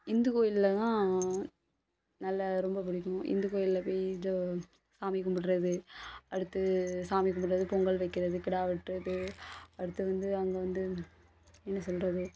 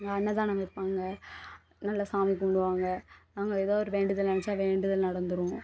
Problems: constant background noise